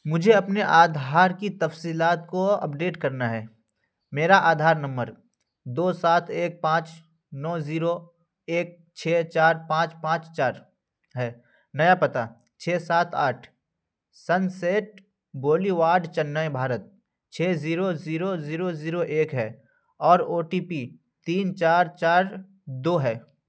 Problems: none marked